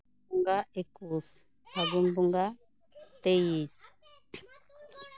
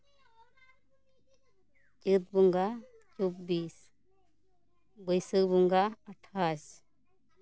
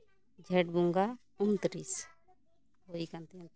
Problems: background sounds at intervals, continuous background conversations